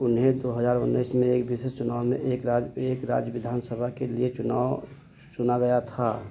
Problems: constant background noise, low volume